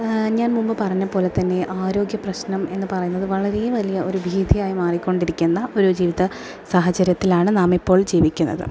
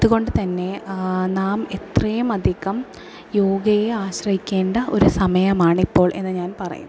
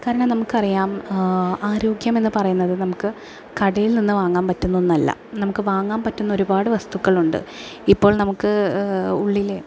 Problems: low volume